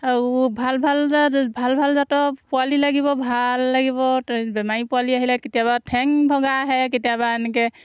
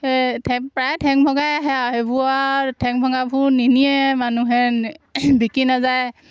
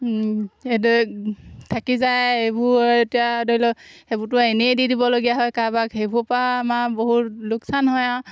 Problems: constant background noise